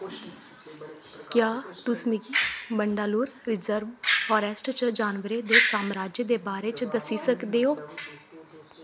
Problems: constant background noise